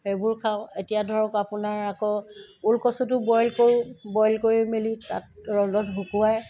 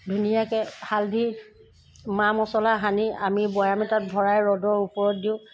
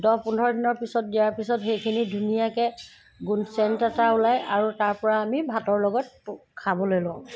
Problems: constant background noise